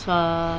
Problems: constant background noise